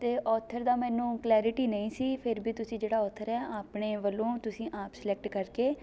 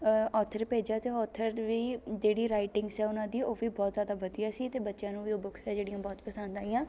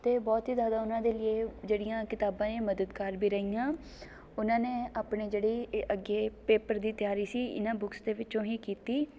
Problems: background sounds at intervals, continuous background conversations